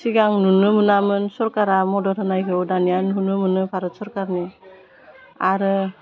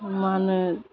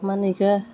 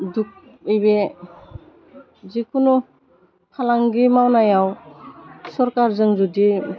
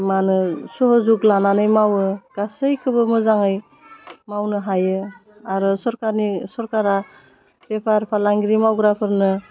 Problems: none marked